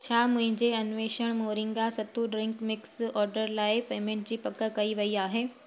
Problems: constant background noise